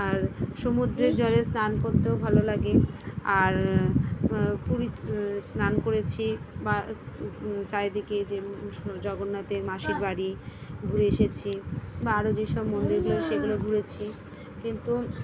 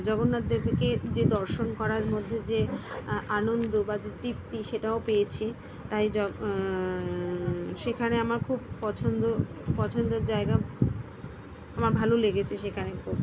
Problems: constant background noise, background conversations at intervals